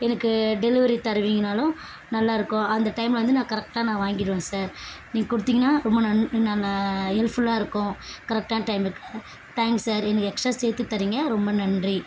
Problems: constant background noise